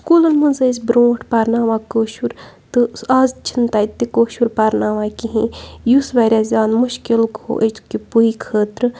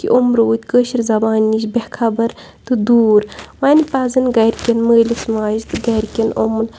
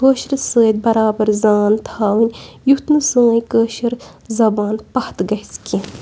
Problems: none marked